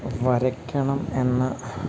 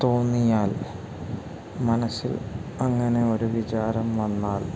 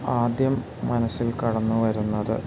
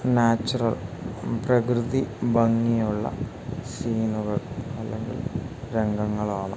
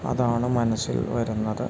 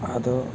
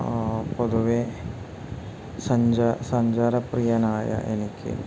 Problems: constant background noise